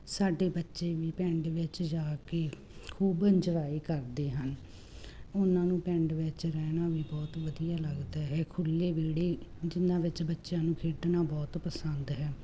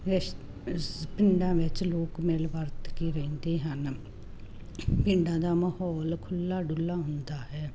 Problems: constant background noise